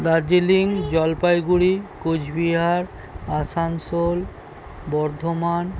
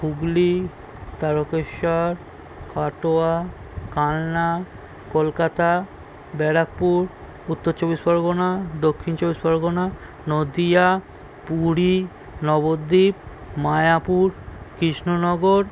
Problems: constant background noise